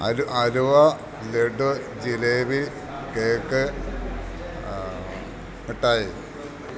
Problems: background sounds at intervals